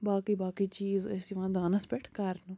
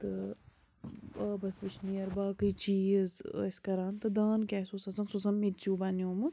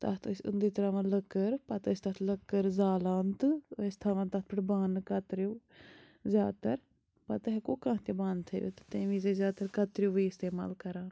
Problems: constant background noise